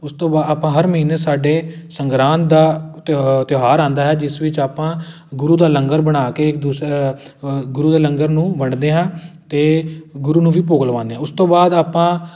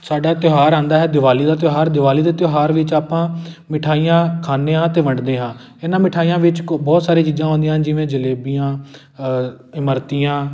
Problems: none marked